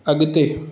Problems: constant background noise, echo